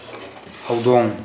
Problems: none marked